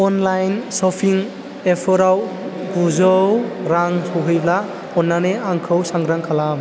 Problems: none marked